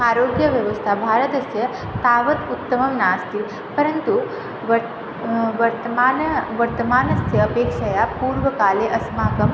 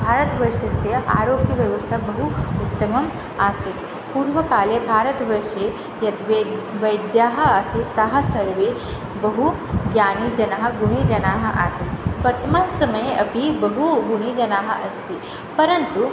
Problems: constant background noise